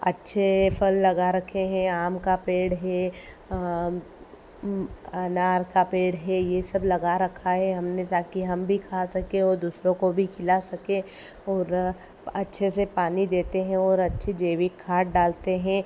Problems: none marked